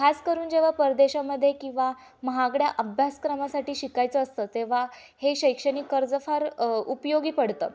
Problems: none marked